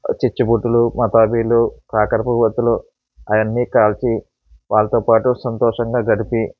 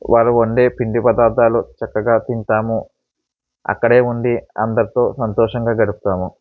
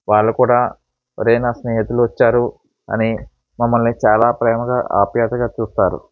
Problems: background sounds at intervals